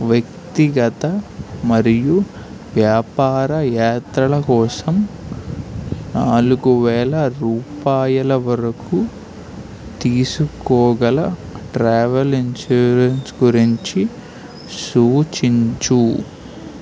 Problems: constant background noise